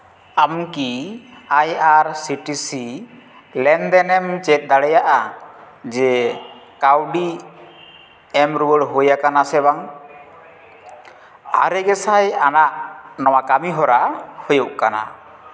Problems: constant background noise, echo